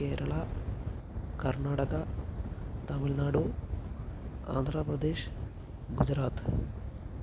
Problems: constant background noise, low volume